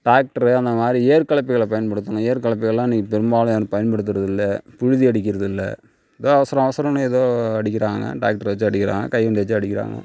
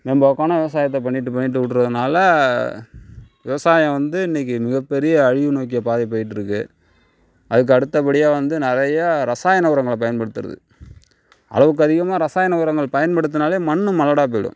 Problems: background sounds at intervals